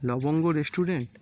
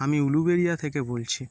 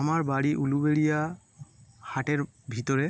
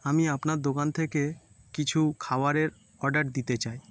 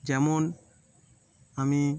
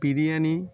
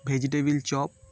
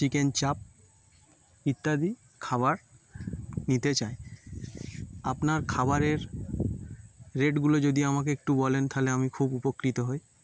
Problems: none marked